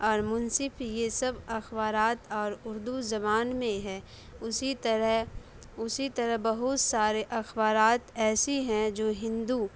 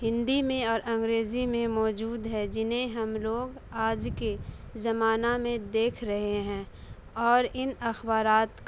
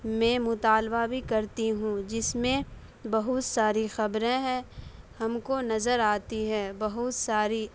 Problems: none marked